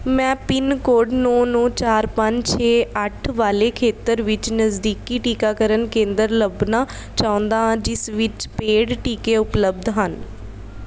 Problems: none marked